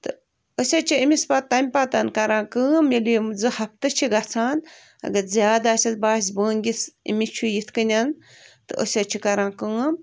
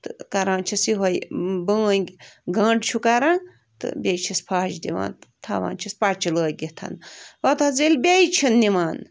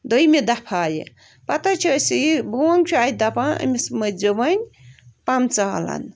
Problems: none marked